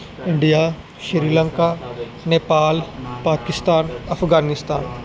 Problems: background sounds at intervals